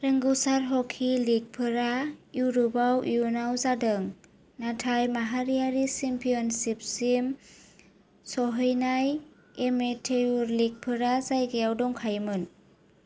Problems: none marked